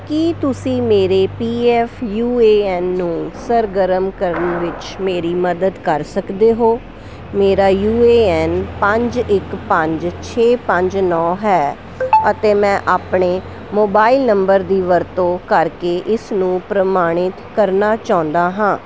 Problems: constant background noise